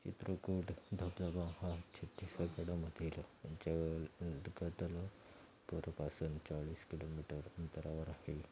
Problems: background sounds at intervals